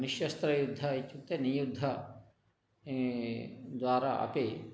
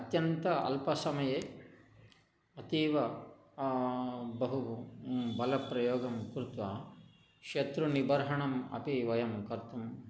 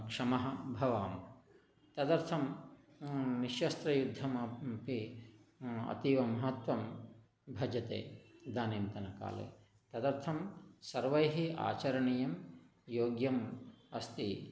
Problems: none marked